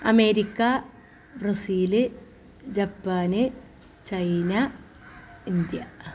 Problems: none marked